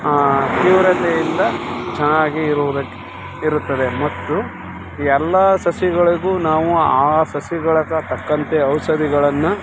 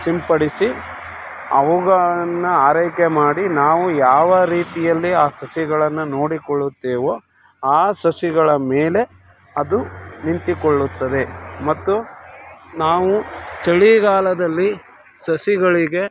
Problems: background sounds at intervals